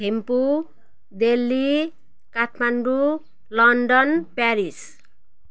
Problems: background sounds at intervals